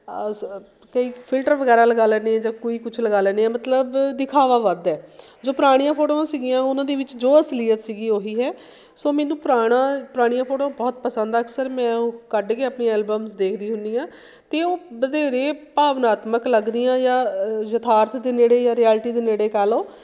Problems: background sounds at intervals